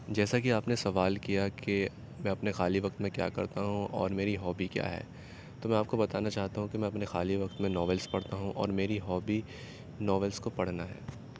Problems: constant background noise